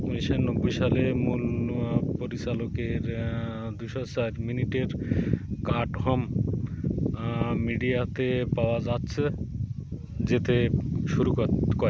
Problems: constant background noise